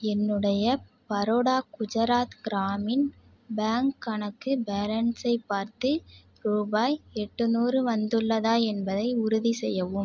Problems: none marked